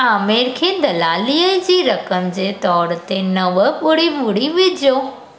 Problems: constant background noise, echo